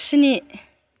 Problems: none marked